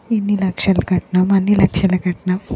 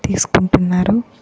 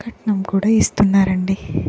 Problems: background sounds at intervals